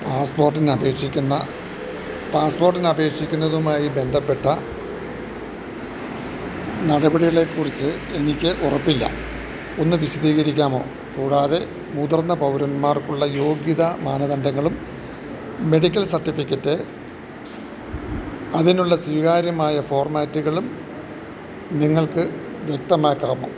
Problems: low volume